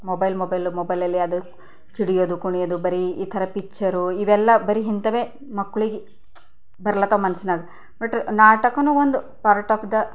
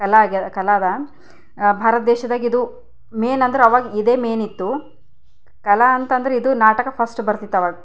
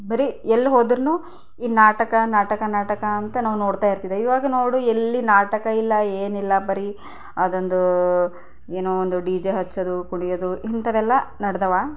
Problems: none marked